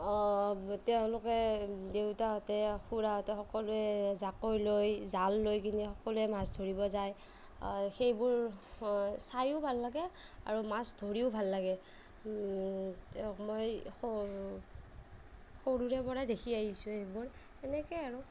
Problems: none marked